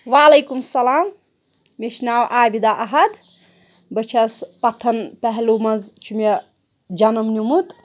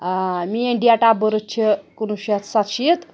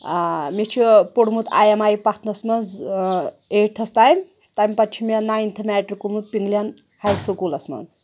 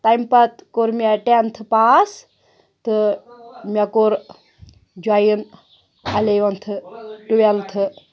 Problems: background sounds at intervals